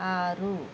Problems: constant background noise